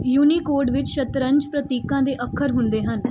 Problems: background sounds at intervals